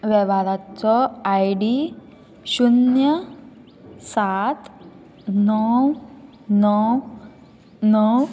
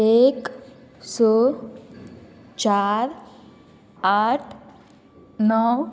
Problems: constant background noise